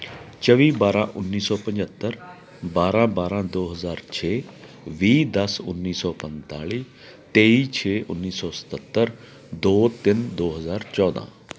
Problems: constant background noise